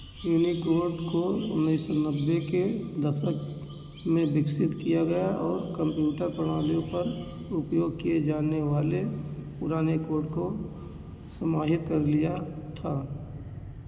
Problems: constant background noise